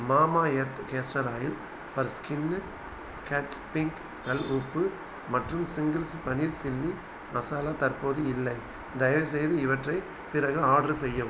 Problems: constant background noise